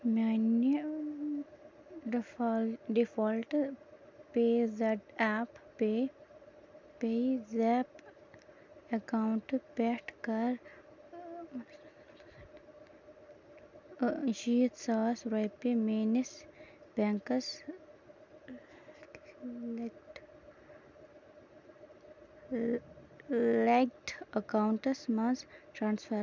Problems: background sounds at intervals